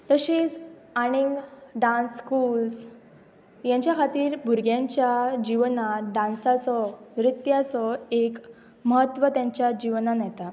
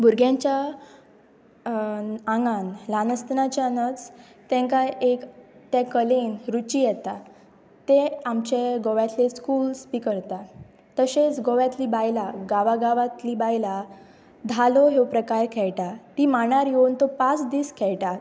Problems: constant background noise